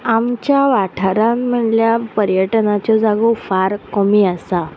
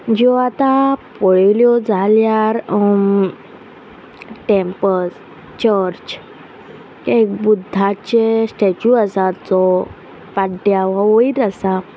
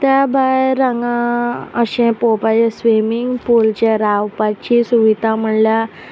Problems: none marked